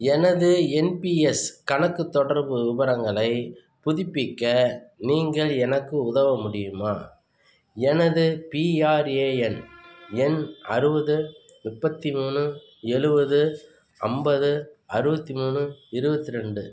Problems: background sounds at intervals